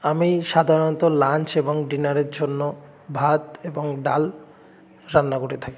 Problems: background conversations at intervals